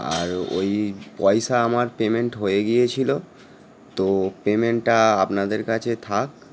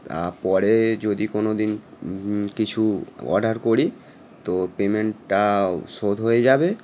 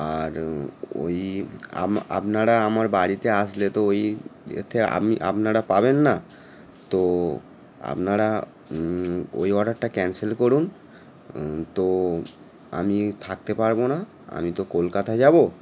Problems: none marked